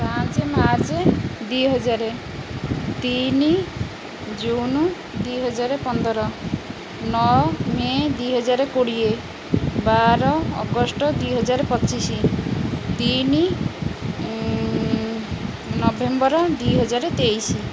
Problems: constant background noise